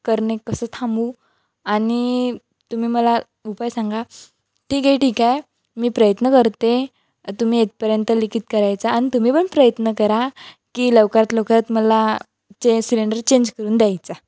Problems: none marked